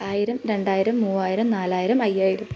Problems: background sounds at intervals